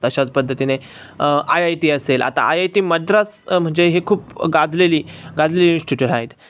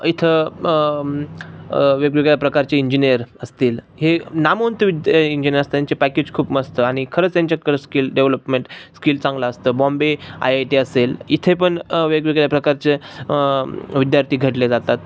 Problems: none marked